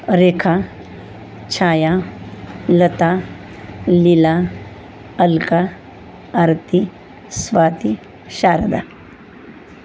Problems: none marked